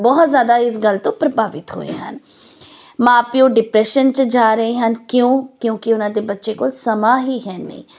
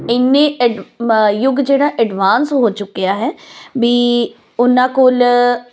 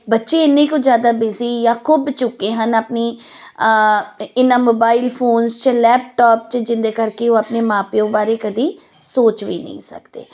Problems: none marked